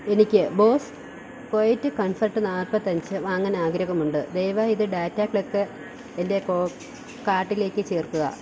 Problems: constant background noise